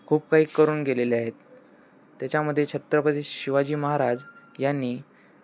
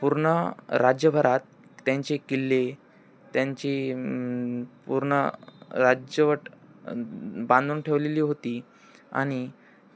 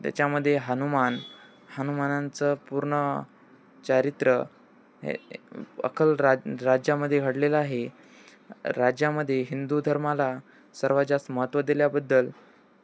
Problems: none marked